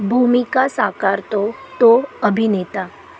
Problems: constant background noise, background conversations at intervals, low volume